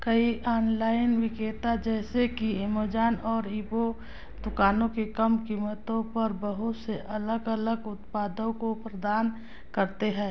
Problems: none marked